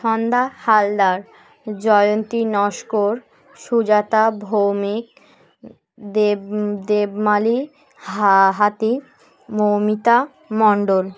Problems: none marked